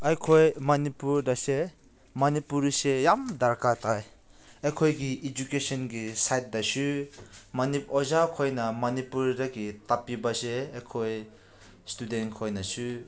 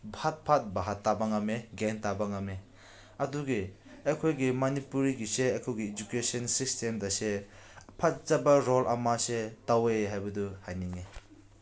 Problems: background sounds at intervals